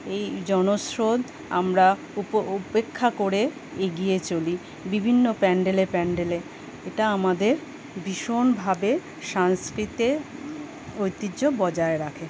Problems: none marked